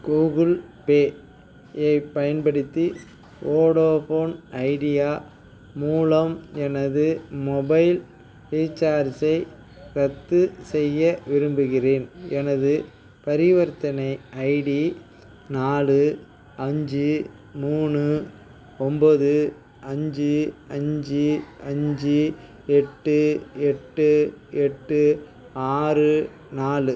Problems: background sounds at intervals, background conversations at intervals